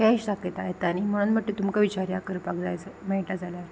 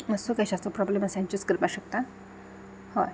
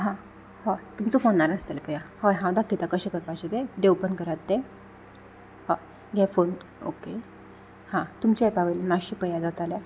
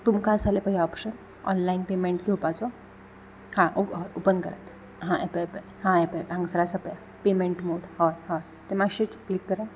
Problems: none marked